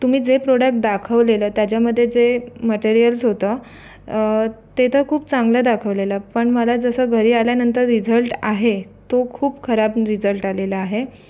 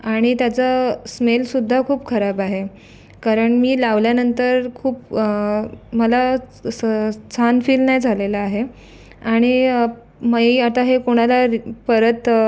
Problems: none marked